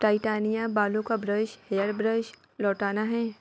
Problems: constant background noise, background conversations at intervals